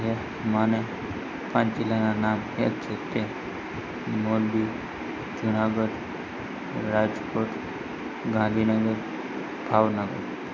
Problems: constant background noise